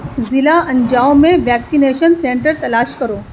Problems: background sounds at intervals